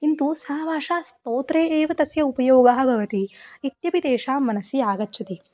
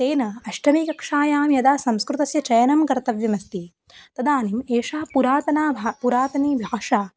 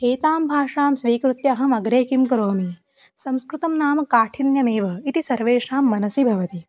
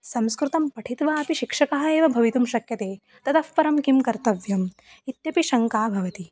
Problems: background sounds at intervals, background conversations at intervals